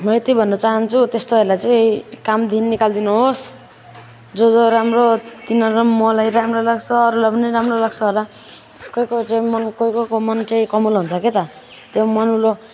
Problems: none marked